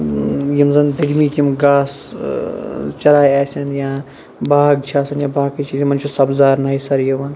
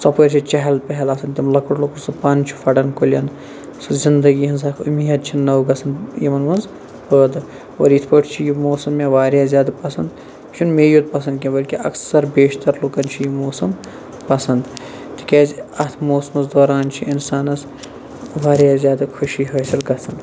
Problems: none marked